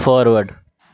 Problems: constant background noise